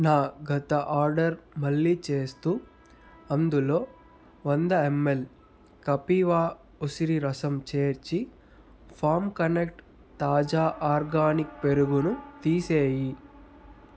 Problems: background sounds at intervals